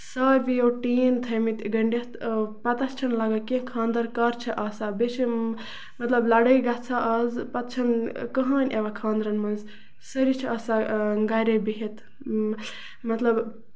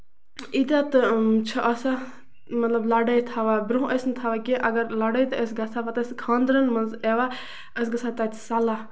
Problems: constant background noise